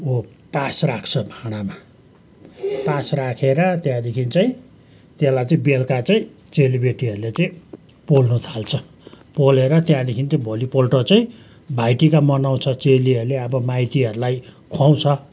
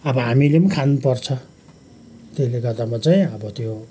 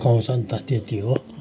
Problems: background sounds at intervals